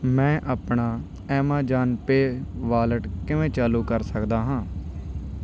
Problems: background sounds at intervals